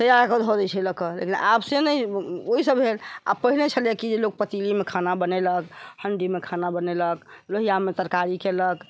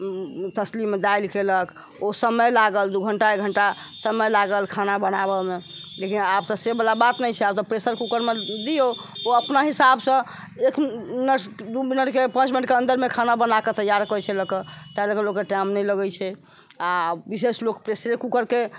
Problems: constant background noise